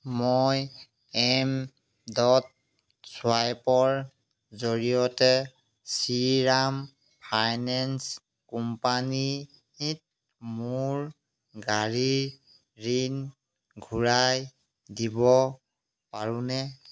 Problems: none marked